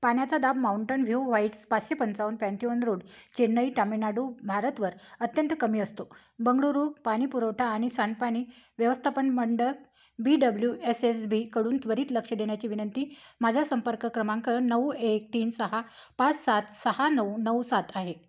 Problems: background sounds at intervals